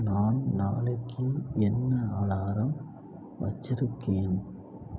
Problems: low volume